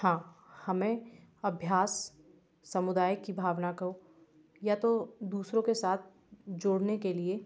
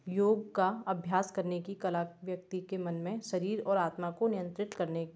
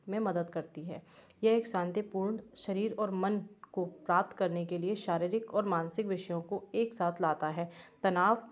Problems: background sounds at intervals